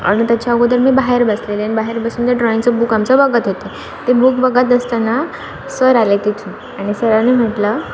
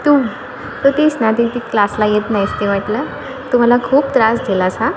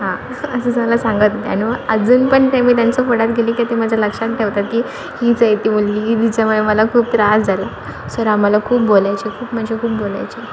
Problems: background sounds at intervals